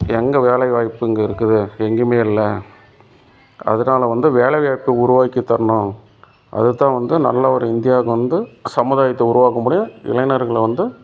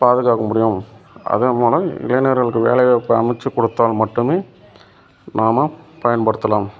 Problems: constant background noise